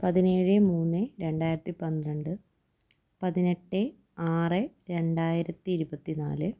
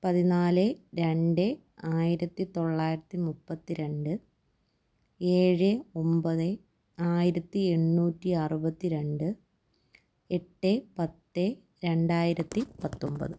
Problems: low volume